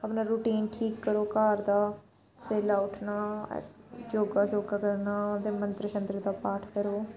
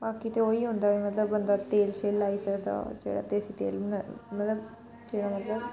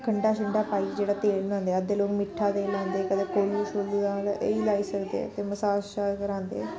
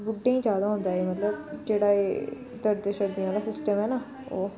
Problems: background sounds at intervals